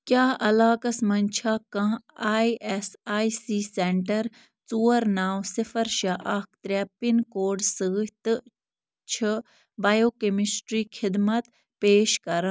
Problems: none marked